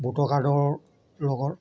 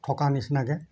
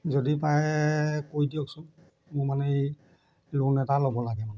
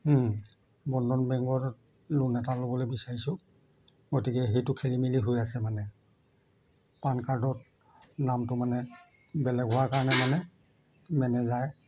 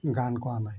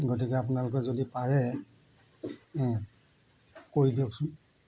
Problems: constant background noise